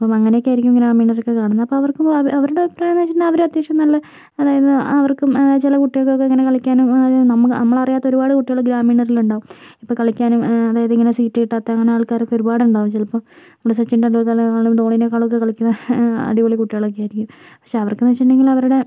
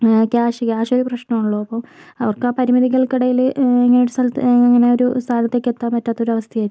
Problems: none marked